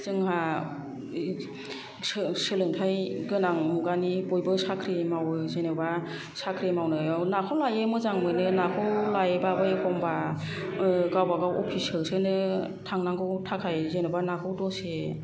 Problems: none marked